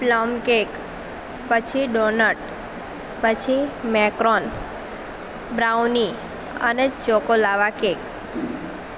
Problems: constant background noise